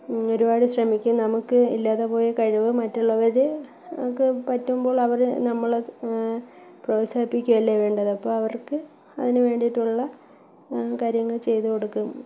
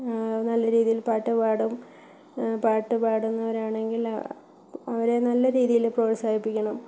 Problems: background sounds at intervals, low volume